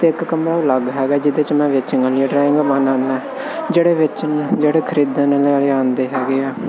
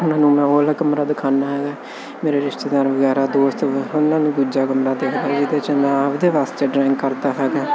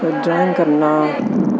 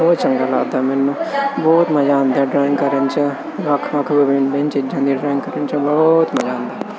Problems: constant background noise, background conversations at intervals